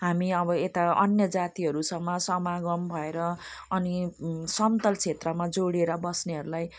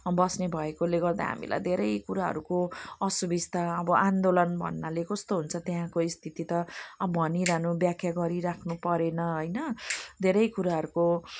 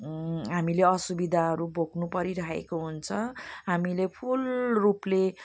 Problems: none marked